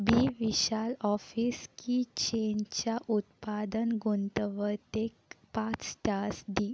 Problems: background sounds at intervals